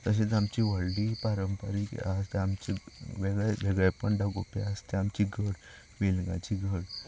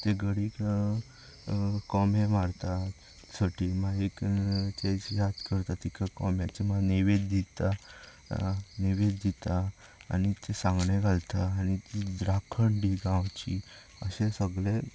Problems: background sounds at intervals